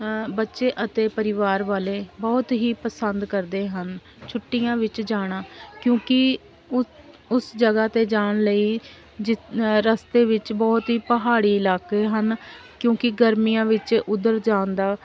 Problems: background sounds at intervals